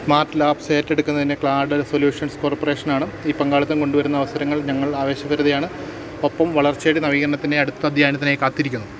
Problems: none marked